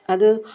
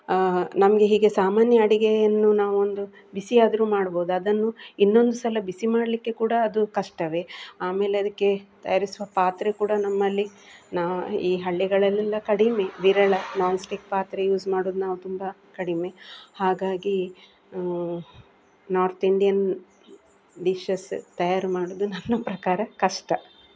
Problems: none marked